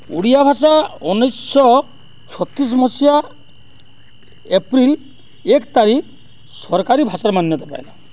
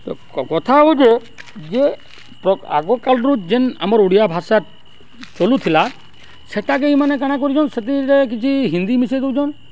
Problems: none marked